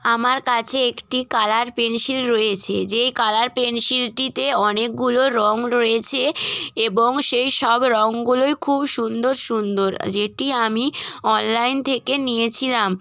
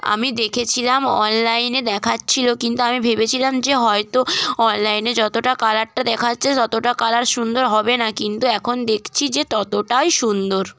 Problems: background sounds at intervals, background conversations at intervals